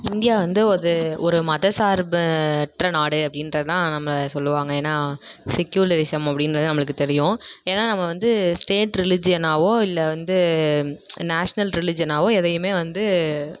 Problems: none marked